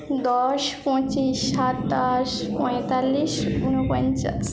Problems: background conversations at intervals